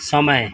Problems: background sounds at intervals